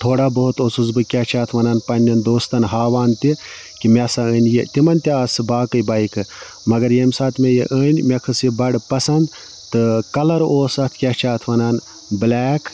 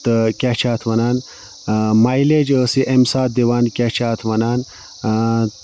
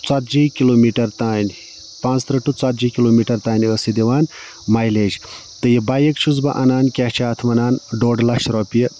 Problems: constant background noise